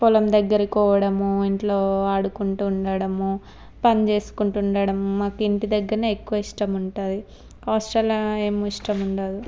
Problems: none marked